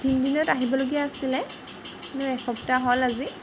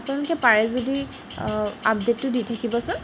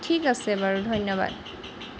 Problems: background sounds at intervals